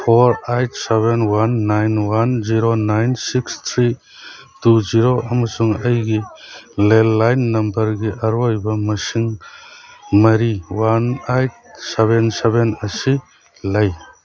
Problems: background sounds at intervals